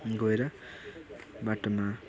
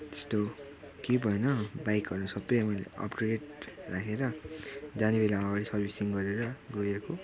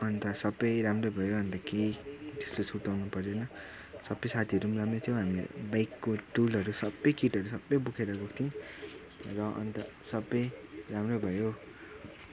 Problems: constant background noise, continuous background conversations